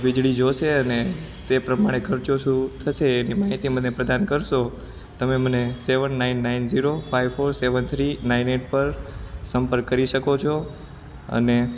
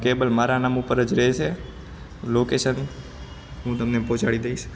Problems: background sounds at intervals